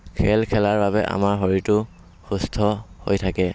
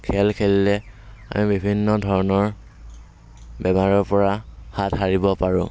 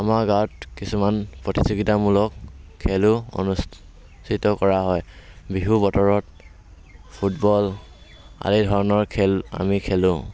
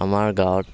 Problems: background sounds at intervals, background conversations at intervals